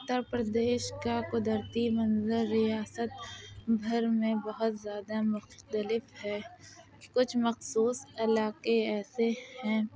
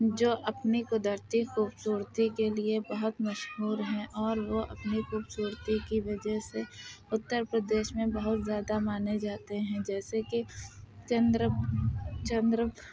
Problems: constant background noise, background conversations at intervals, low volume